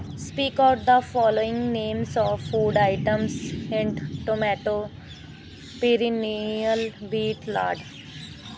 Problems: none marked